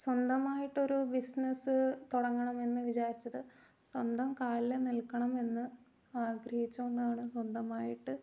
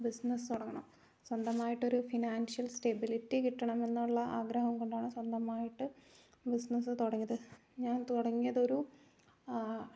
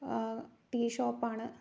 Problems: low volume